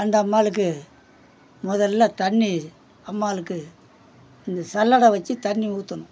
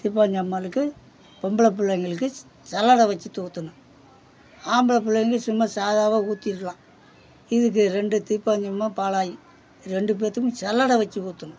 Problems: background sounds at intervals, background conversations at intervals